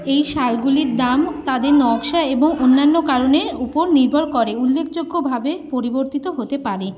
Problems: constant background noise, background conversations at intervals